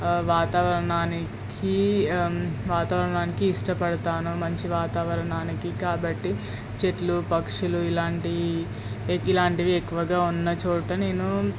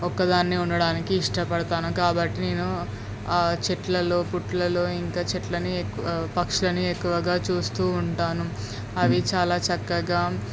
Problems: constant background noise